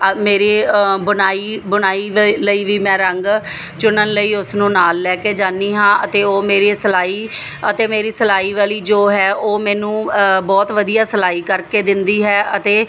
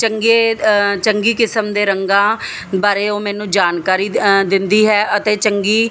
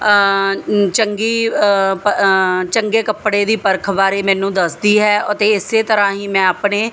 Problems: none marked